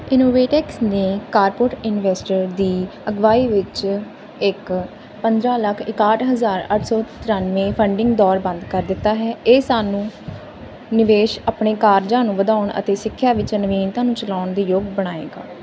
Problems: constant background noise